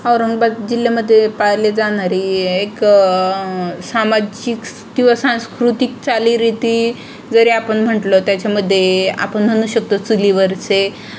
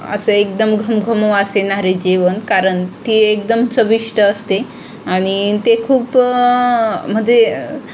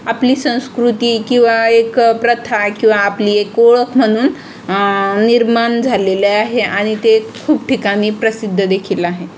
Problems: constant background noise, background conversations at intervals